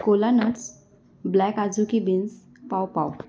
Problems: none marked